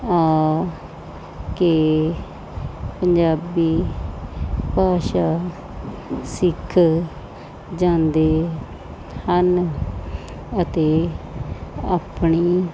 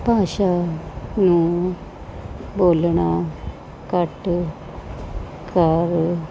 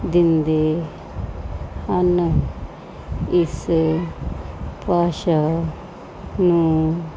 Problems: constant background noise